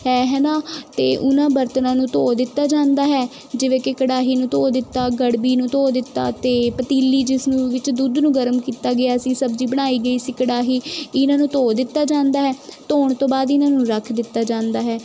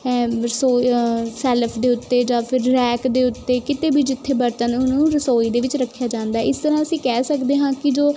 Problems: constant background noise